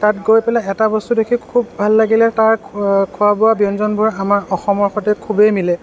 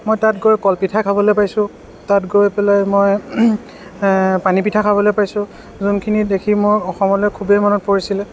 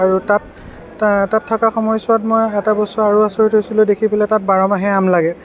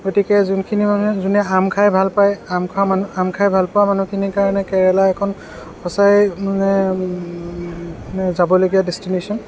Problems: background sounds at intervals, background conversations at intervals